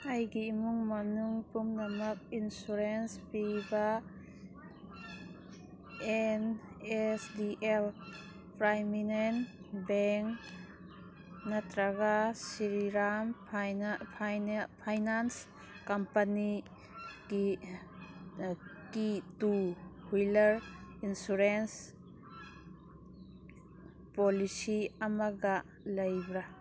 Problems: background sounds at intervals